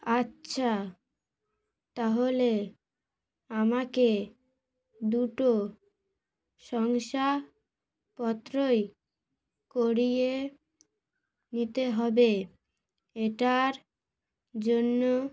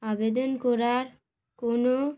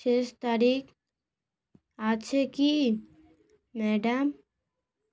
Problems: none marked